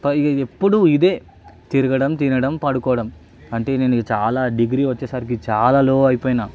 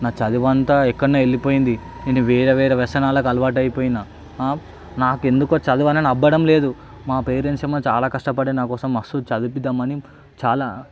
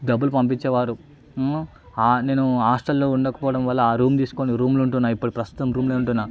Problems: none marked